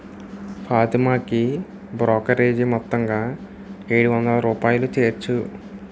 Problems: constant background noise